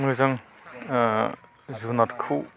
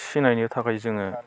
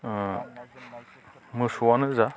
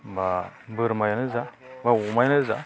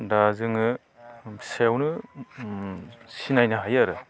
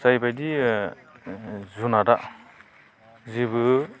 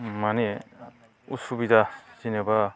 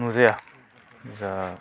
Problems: none marked